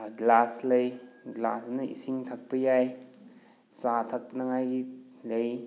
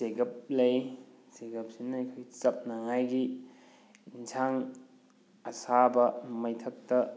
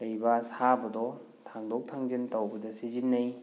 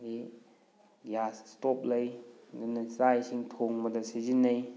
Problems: background sounds at intervals